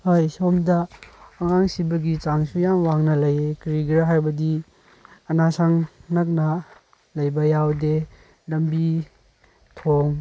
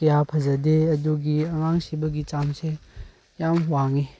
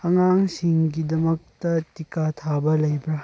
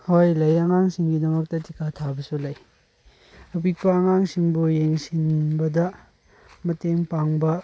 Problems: background sounds at intervals